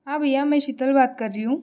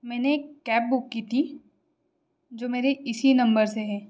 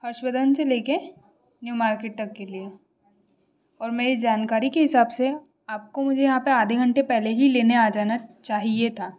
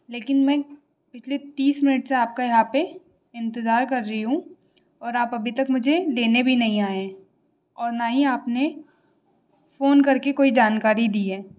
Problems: constant background noise